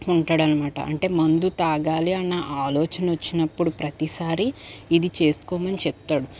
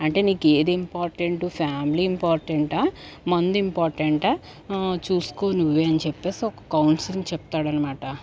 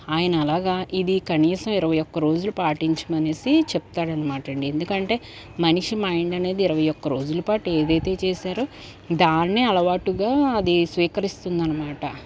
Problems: none marked